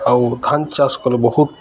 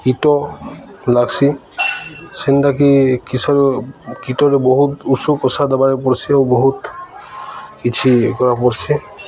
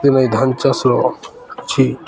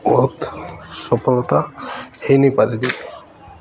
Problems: constant background noise, continuous background conversations